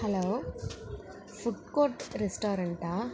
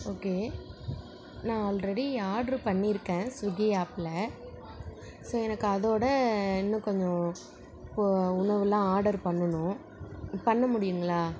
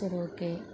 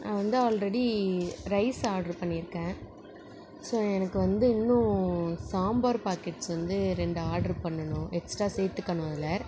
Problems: background conversations at intervals